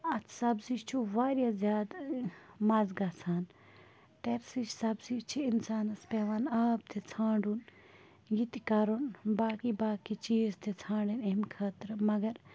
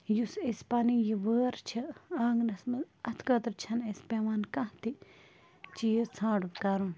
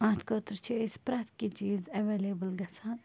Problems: constant background noise, low volume